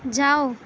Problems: none marked